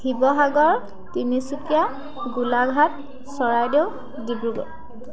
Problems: constant background noise, continuous background conversations